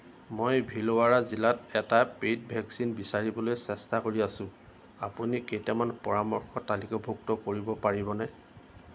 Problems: constant background noise